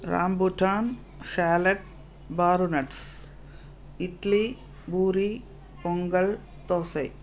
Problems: constant background noise